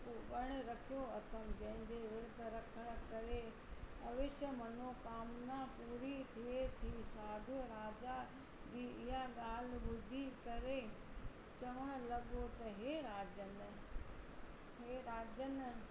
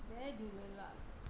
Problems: constant background noise, low volume